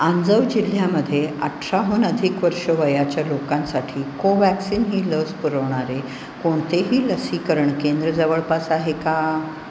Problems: none marked